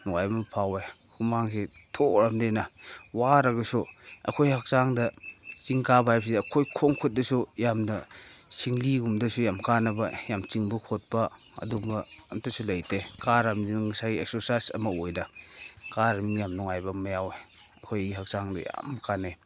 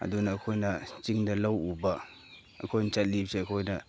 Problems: none marked